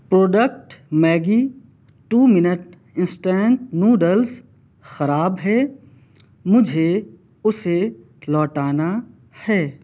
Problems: none marked